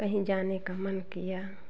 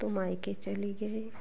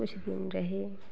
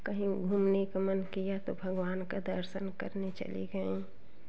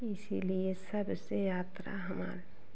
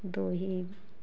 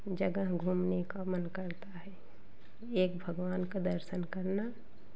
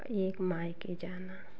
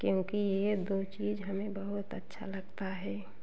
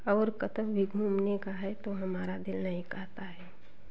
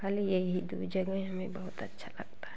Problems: constant background noise, continuous background conversations